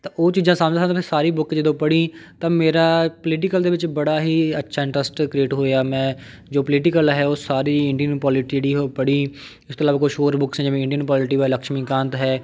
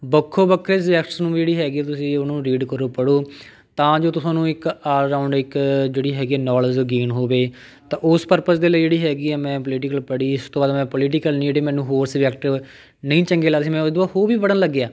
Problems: background conversations at intervals